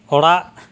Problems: none marked